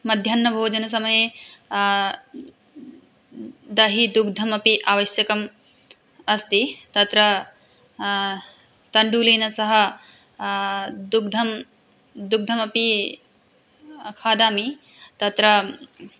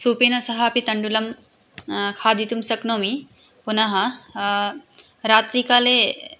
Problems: none marked